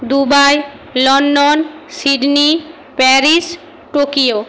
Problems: constant background noise